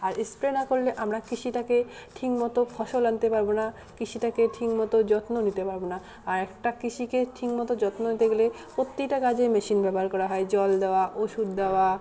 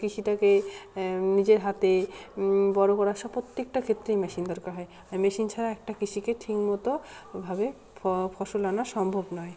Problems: continuous background conversations